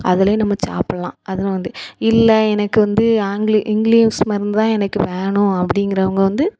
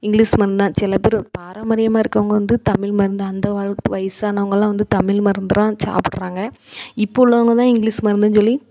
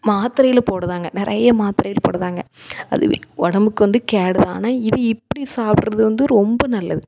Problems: none marked